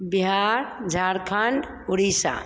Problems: constant background noise